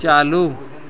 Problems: constant background noise